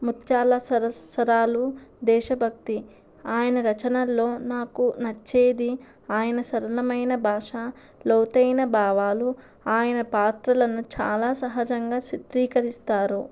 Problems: constant background noise